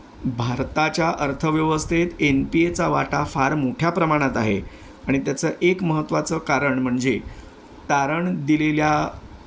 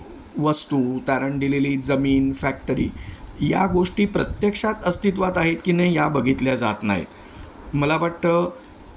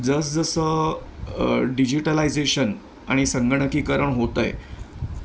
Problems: none marked